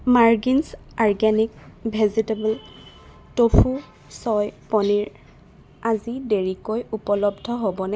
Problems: constant background noise